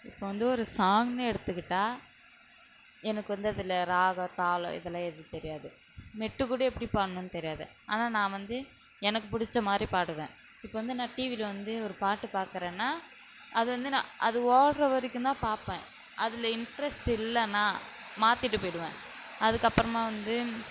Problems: none marked